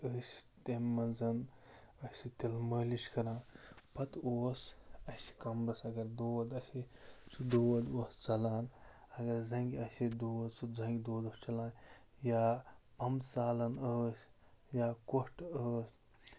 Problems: constant background noise